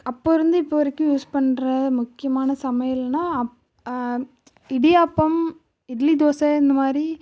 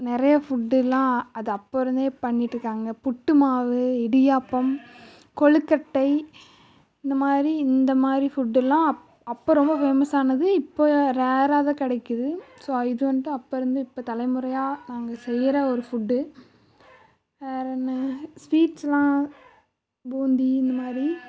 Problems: none marked